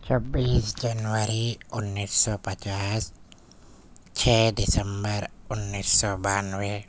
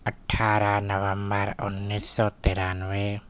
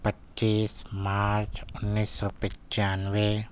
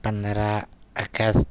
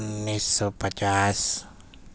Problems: none marked